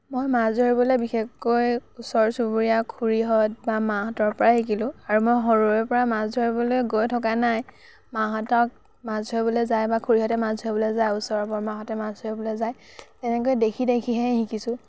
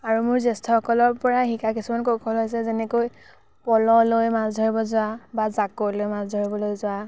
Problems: none marked